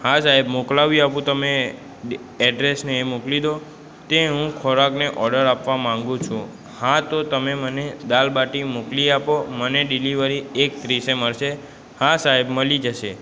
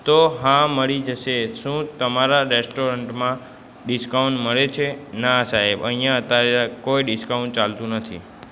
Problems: constant background noise, background conversations at intervals